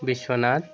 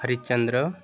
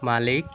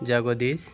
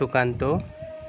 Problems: none marked